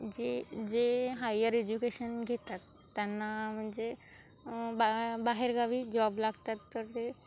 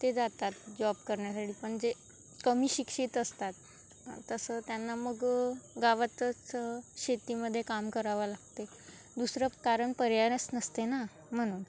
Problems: constant background noise, background conversations at intervals